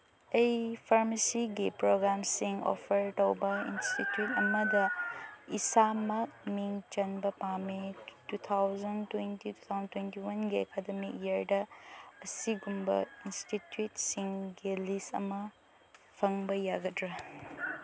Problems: background sounds at intervals, low volume